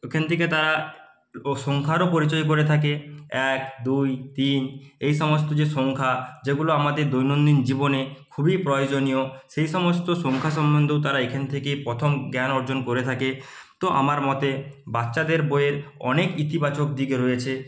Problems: none marked